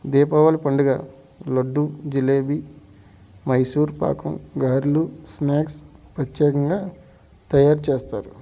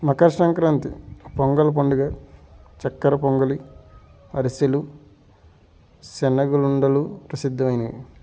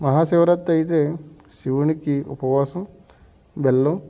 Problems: background sounds at intervals